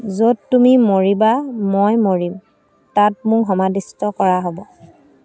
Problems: none marked